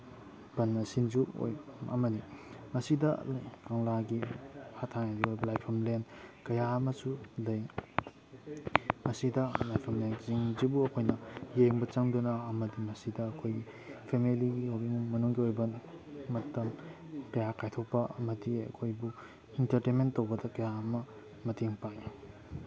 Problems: background sounds at intervals